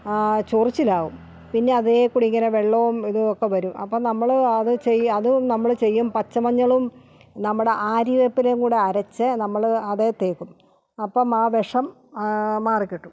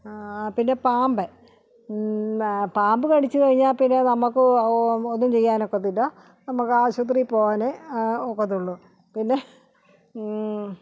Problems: none marked